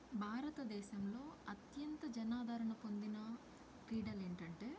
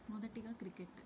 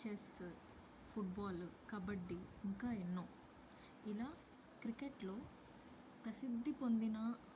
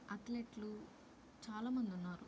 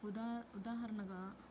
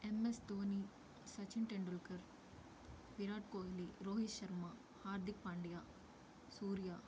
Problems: low volume